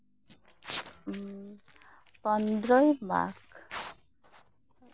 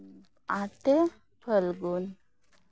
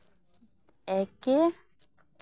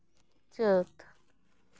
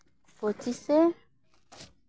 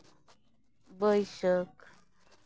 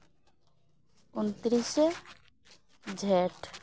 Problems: background sounds at intervals